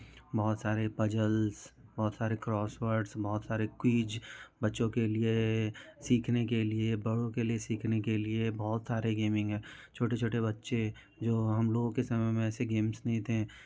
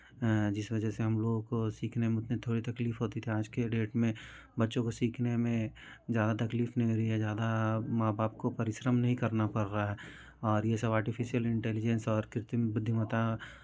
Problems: continuous background conversations